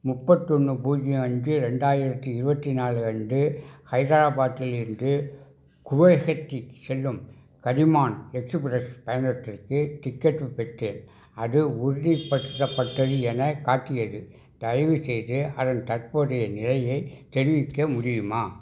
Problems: background sounds at intervals